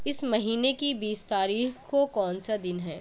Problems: constant background noise